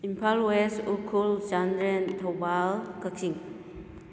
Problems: low volume